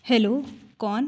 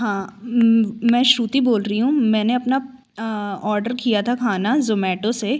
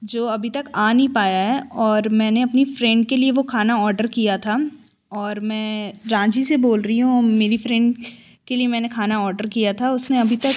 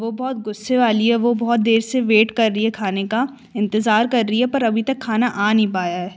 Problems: constant background noise